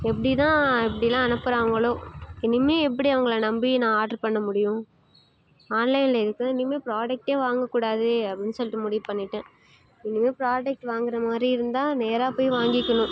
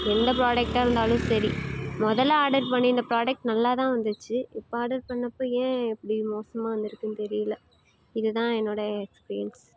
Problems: constant background noise